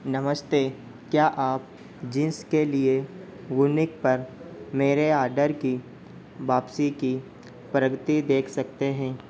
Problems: constant background noise